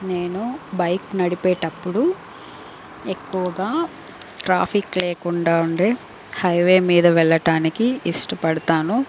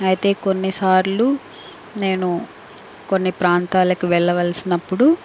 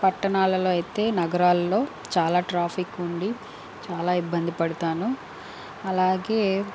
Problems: constant background noise